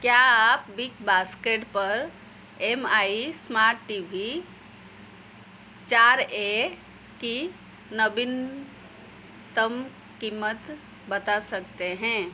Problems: background sounds at intervals